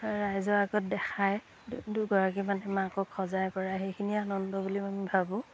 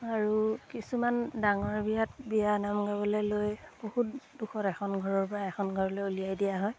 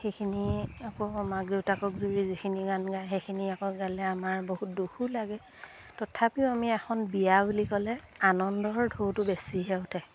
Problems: background sounds at intervals